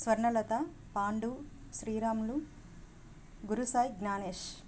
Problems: constant background noise